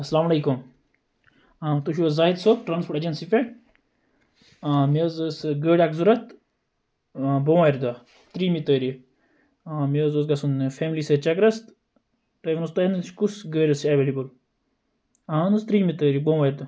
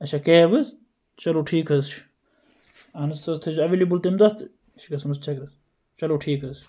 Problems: background sounds at intervals